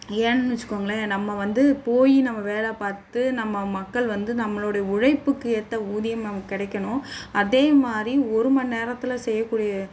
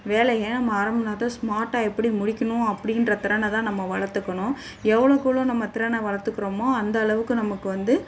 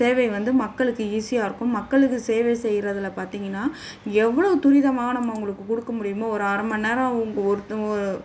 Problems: none marked